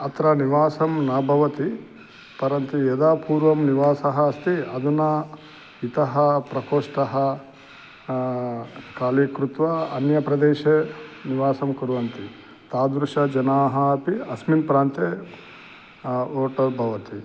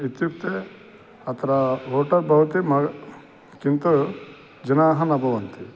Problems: none marked